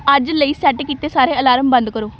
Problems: background sounds at intervals